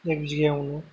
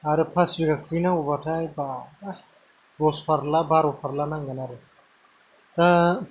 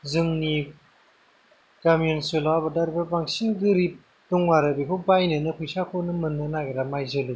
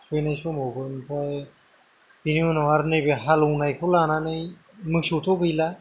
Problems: low volume